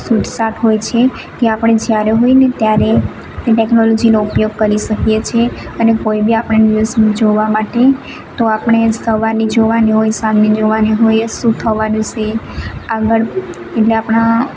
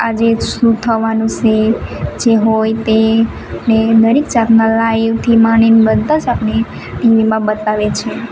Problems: constant background noise